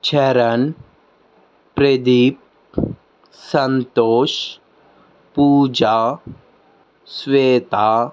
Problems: background sounds at intervals